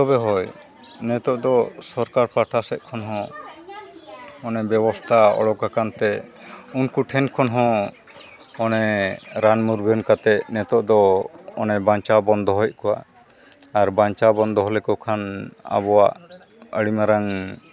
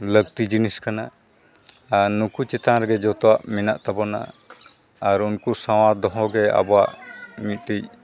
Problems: continuous background conversations